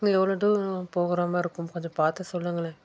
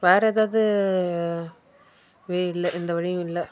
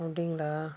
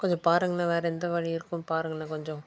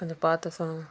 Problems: background sounds at intervals